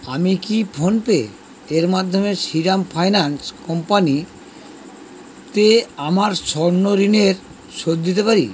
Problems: constant background noise